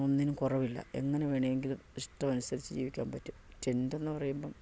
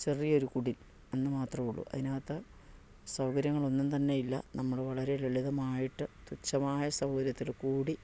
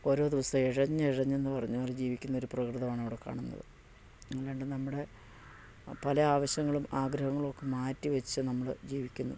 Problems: low volume